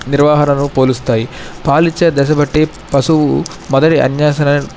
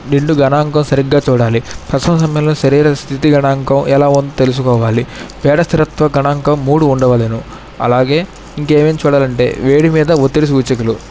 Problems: none marked